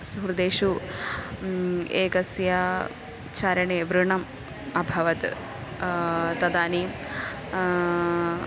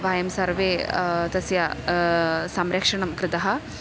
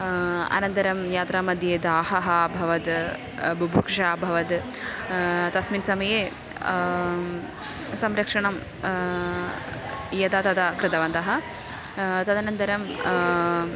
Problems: none marked